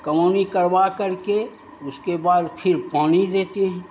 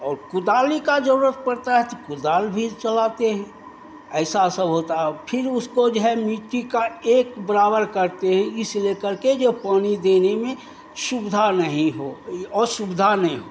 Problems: constant background noise